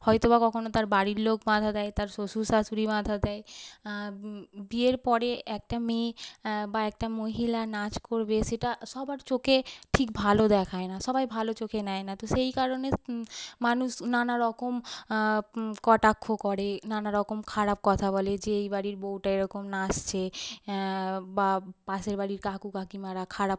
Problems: none marked